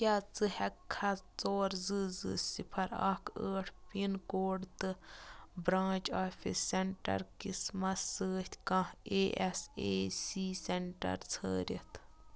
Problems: background sounds at intervals